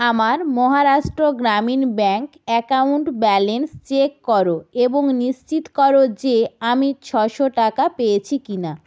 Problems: none marked